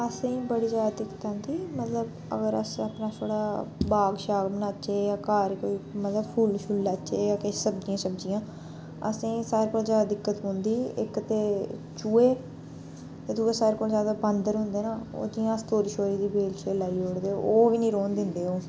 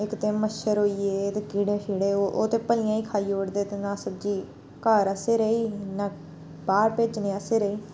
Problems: background sounds at intervals